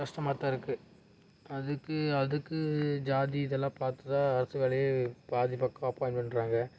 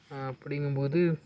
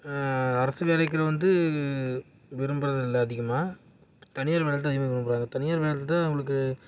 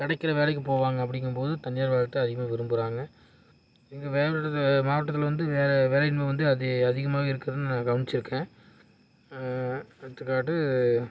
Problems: none marked